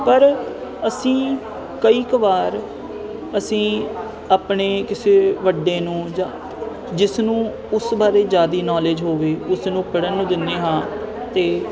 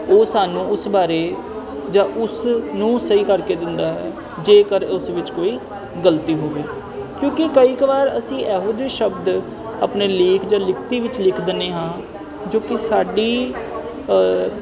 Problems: constant background noise